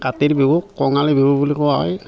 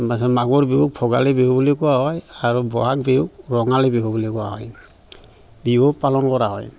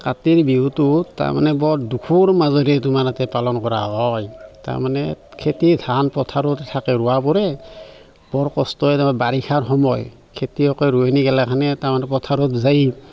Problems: constant background noise, background conversations at intervals